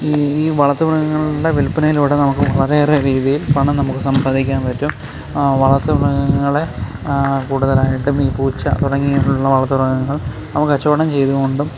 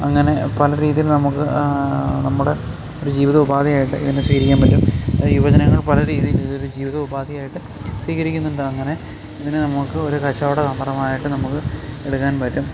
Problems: constant background noise